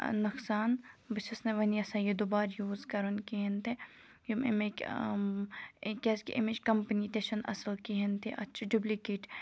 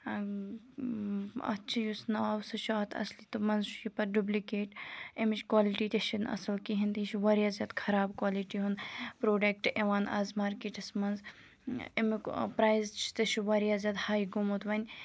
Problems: background sounds at intervals